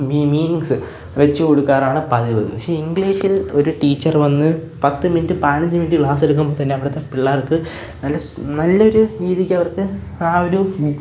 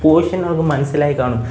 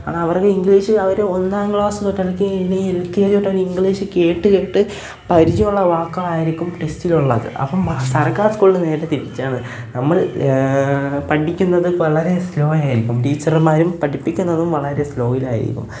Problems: background sounds at intervals